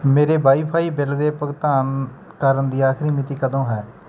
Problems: background sounds at intervals